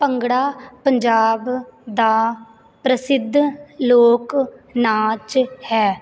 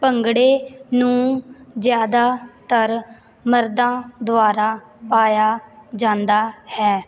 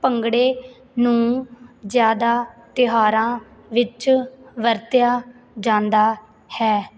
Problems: none marked